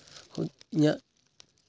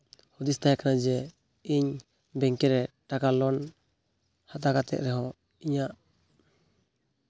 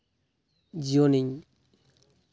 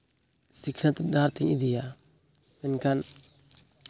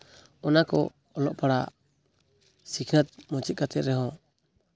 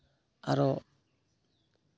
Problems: background sounds at intervals